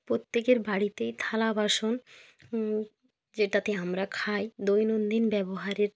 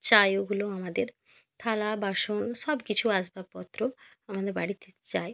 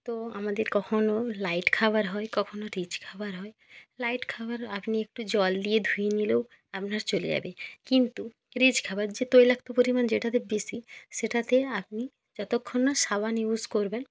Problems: none marked